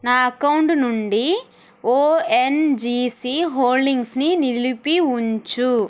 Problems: none marked